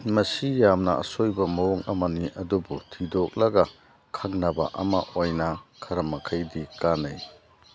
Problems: background sounds at intervals